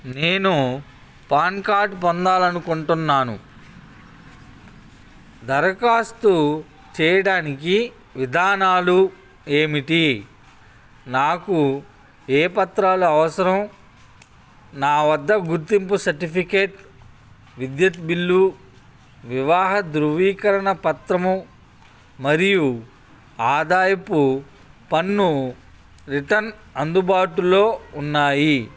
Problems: constant background noise